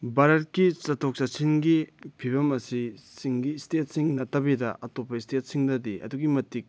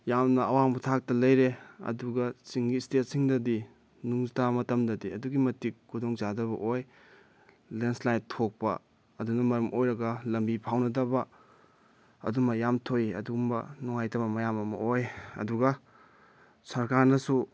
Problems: background sounds at intervals